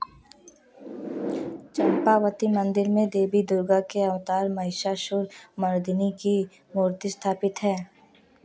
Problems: none marked